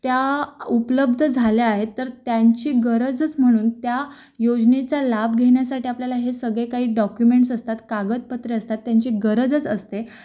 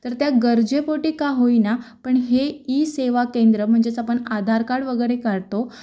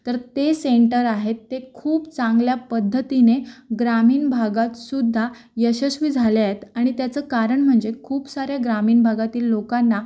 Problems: background sounds at intervals